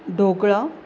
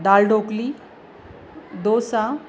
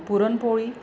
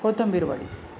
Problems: constant background noise, background conversations at intervals